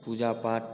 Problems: constant background noise